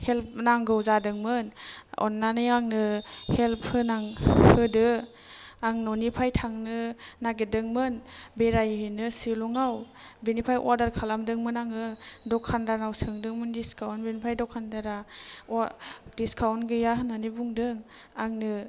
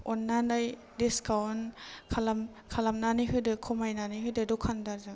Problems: none marked